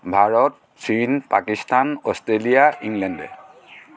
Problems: constant background noise